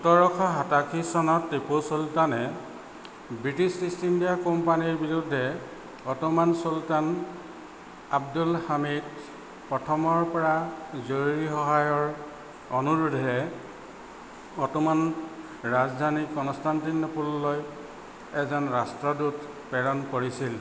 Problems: constant background noise